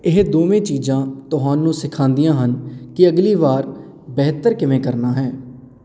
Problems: none marked